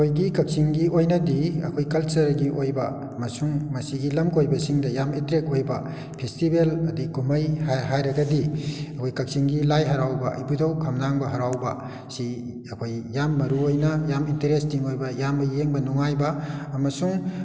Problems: background sounds at intervals